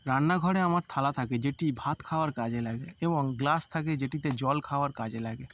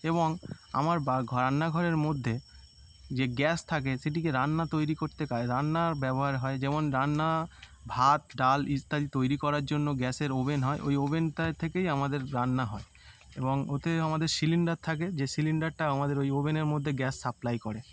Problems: constant background noise